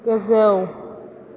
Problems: none marked